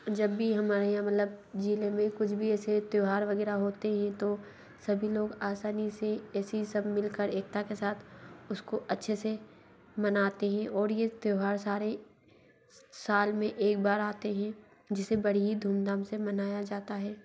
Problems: constant background noise